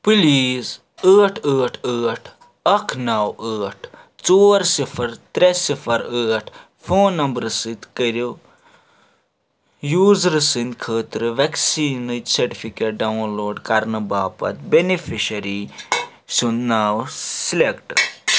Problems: constant background noise